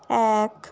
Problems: constant background noise